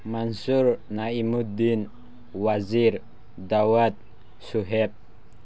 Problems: none marked